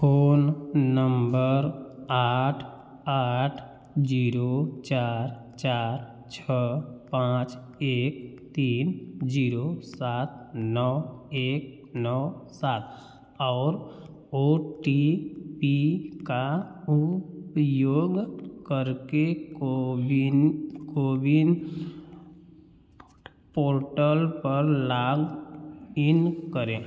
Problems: background sounds at intervals, background conversations at intervals